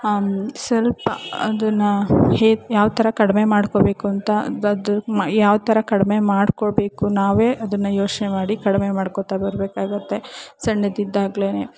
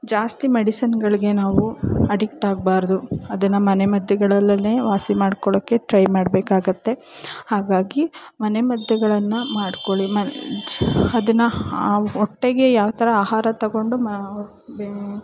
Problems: background sounds at intervals